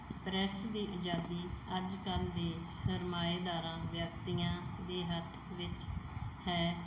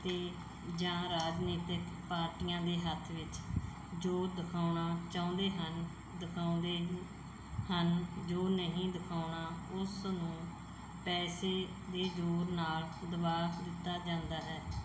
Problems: background sounds at intervals